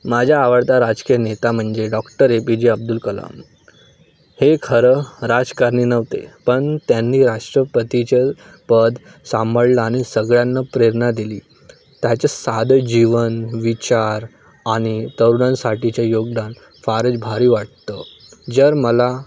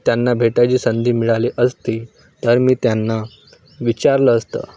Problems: none marked